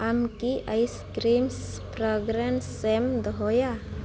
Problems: constant background noise